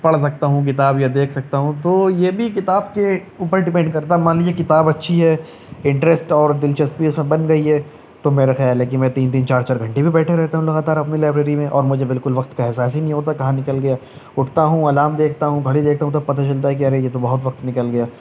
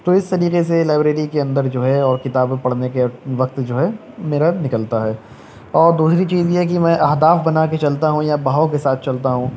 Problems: none marked